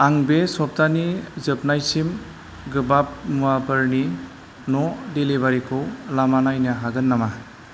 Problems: constant background noise